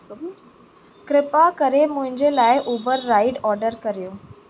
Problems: constant background noise, echo